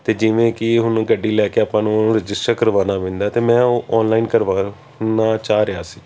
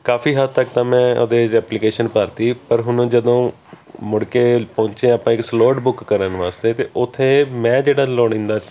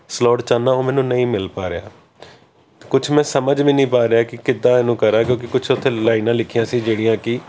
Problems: constant background noise